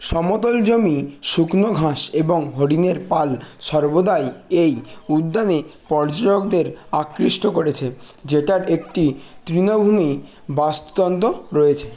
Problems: constant background noise